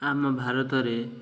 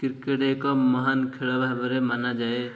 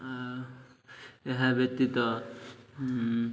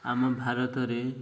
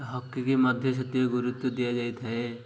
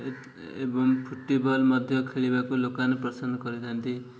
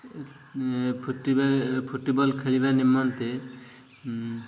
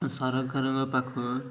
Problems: none marked